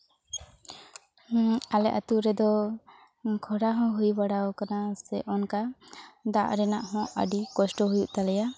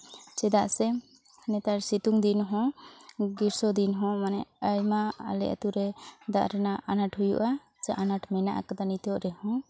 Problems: constant background noise, background conversations at intervals